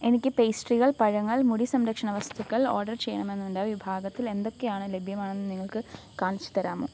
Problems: low volume